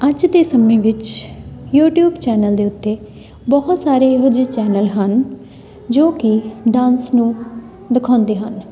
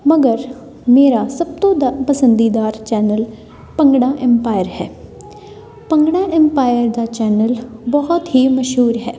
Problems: background sounds at intervals, continuous background conversations